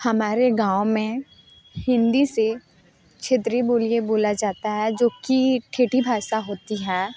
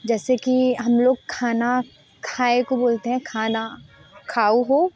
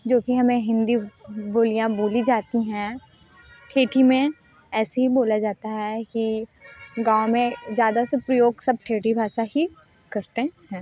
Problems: none marked